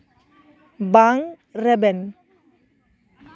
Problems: background conversations at intervals